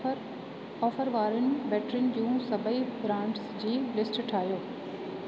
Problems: constant background noise, echo